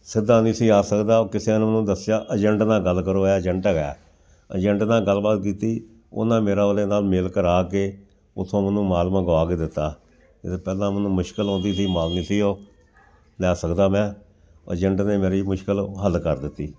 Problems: background sounds at intervals